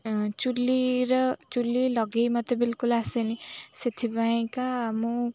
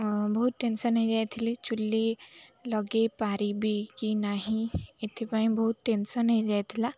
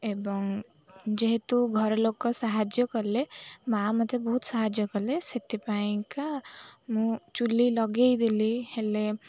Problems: constant background noise, continuous background conversations